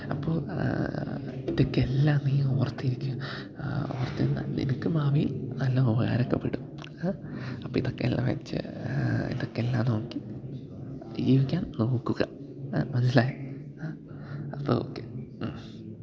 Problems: background sounds at intervals, low volume